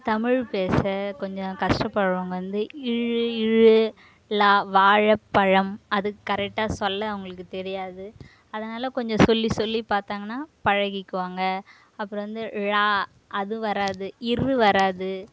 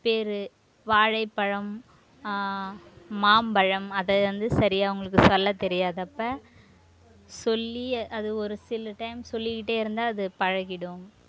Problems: none marked